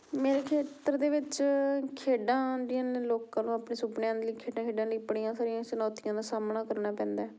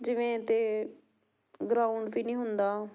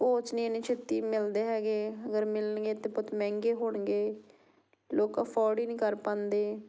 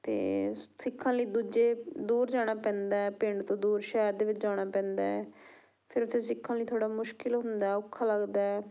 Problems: background sounds at intervals